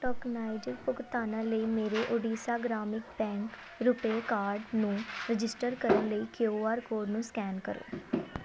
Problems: continuous background conversations